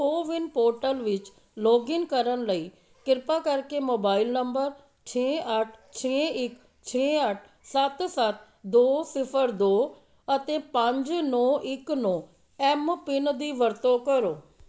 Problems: background conversations at intervals